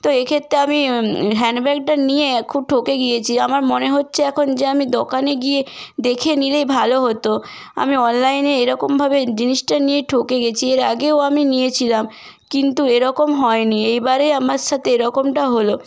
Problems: constant background noise